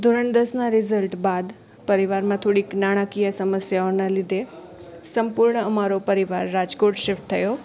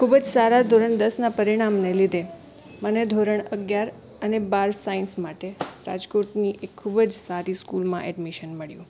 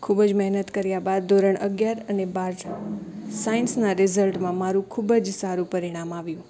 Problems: background sounds at intervals